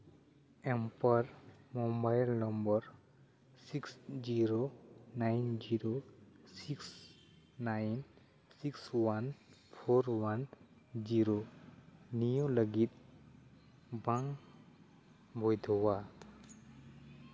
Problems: none marked